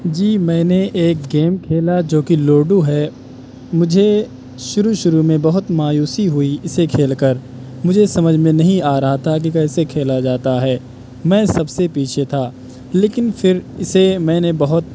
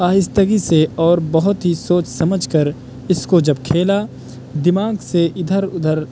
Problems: constant background noise